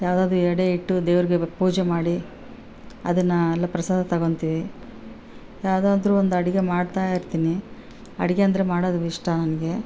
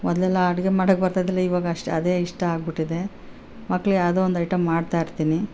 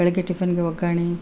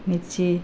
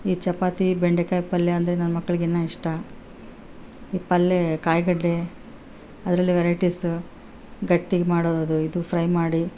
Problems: none marked